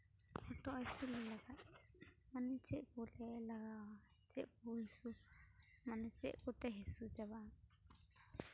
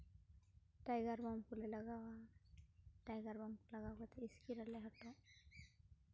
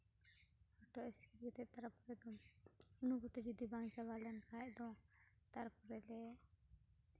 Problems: background sounds at intervals